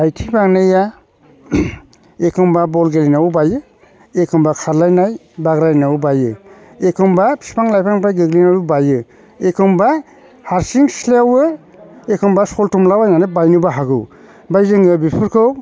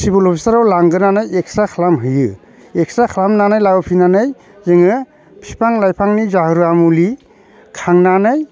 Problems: constant background noise